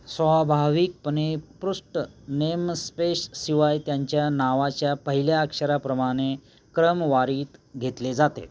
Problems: none marked